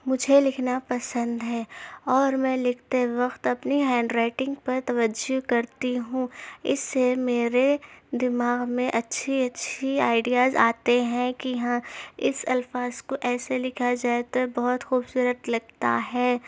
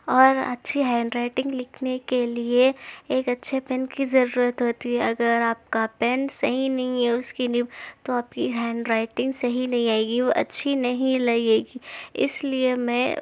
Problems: none marked